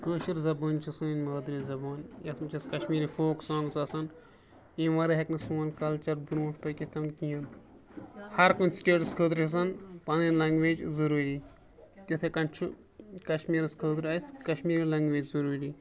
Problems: constant background noise